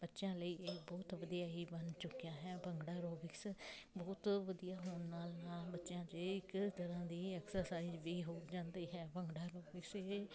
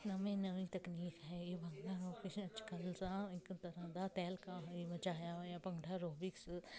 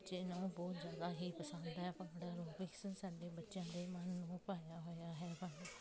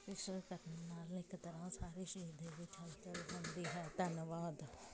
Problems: constant background noise, continuous background conversations